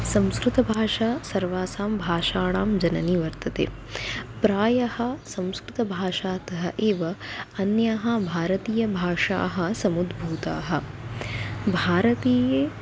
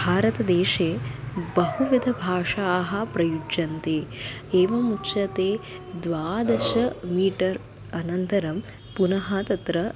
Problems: constant background noise